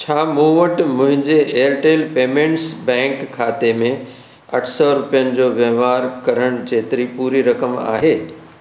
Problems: constant background noise